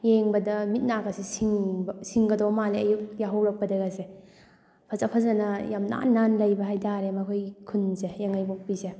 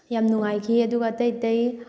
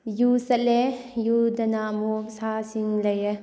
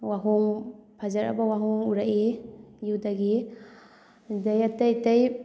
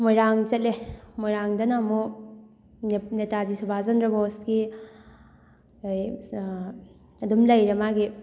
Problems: background sounds at intervals